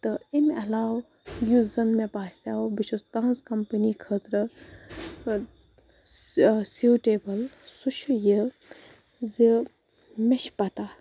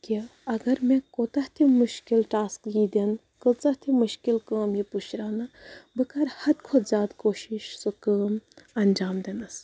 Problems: none marked